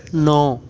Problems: background sounds at intervals, background conversations at intervals